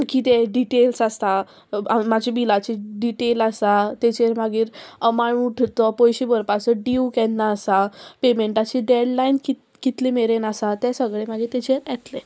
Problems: constant background noise